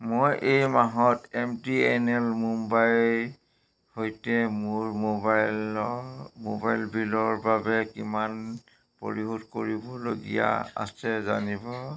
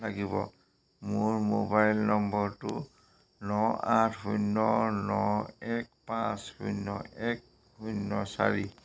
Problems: none marked